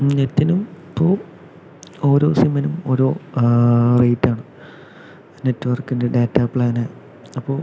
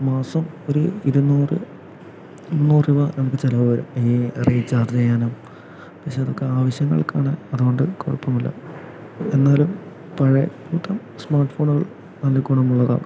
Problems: constant background noise